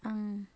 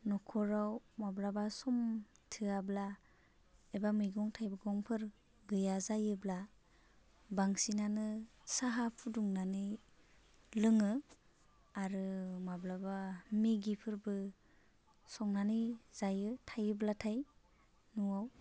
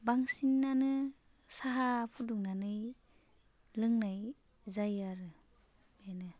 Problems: low volume